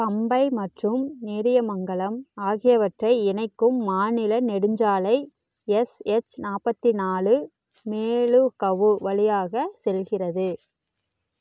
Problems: none marked